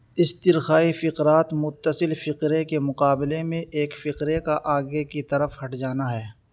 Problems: constant background noise